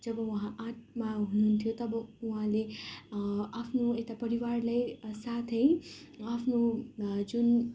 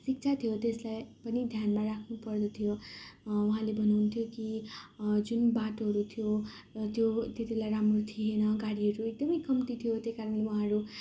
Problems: none marked